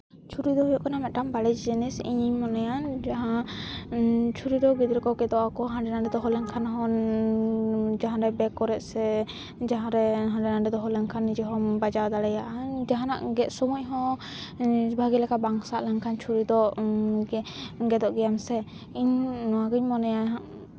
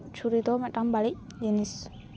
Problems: constant background noise